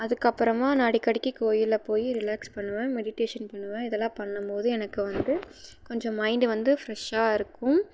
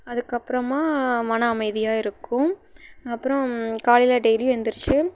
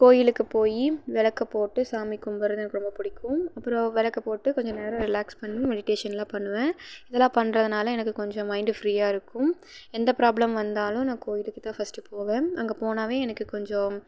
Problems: background sounds at intervals